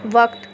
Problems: constant background noise